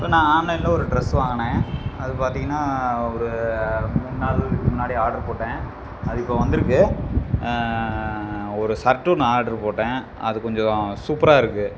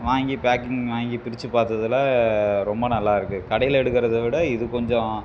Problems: none marked